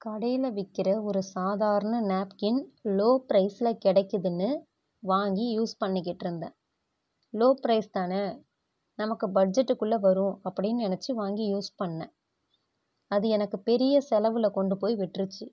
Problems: none marked